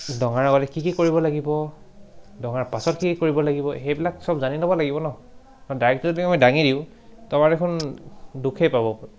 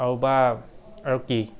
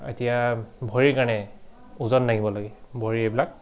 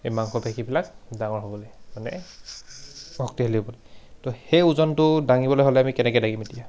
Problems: background sounds at intervals